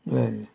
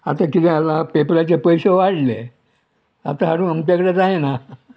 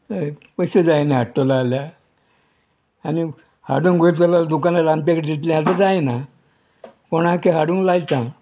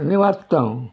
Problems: none marked